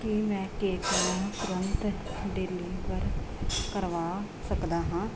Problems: none marked